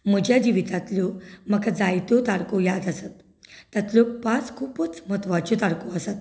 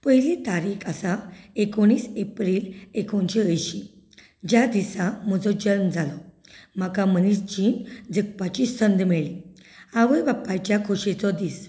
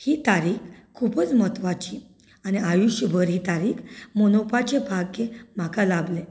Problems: none marked